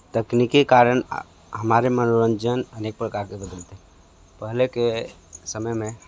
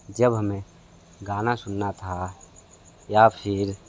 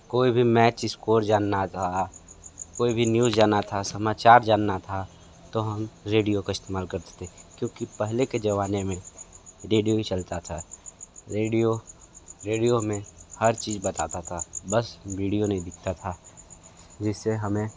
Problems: background conversations at intervals